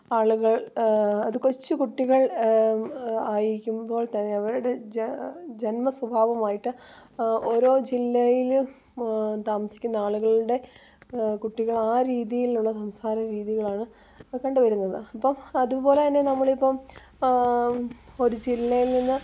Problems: none marked